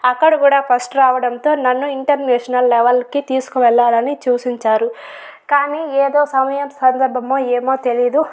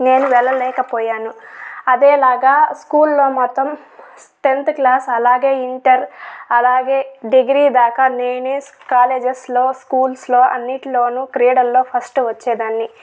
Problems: background sounds at intervals